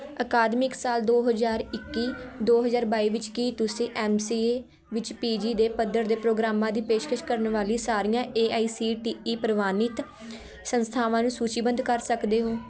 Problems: constant background noise, continuous background conversations